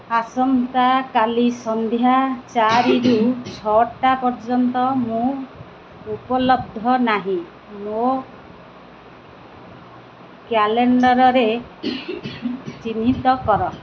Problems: constant background noise